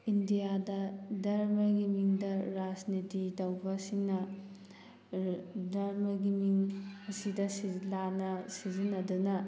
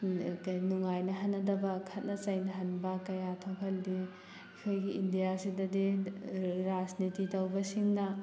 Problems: background sounds at intervals